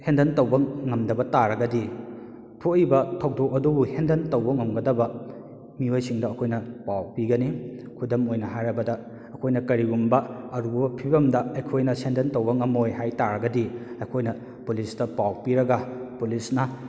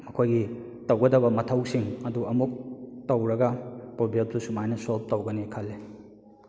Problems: echo